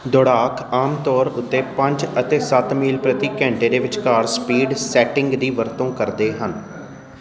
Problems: constant background noise